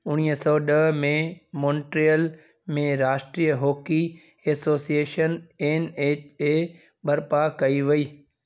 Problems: none marked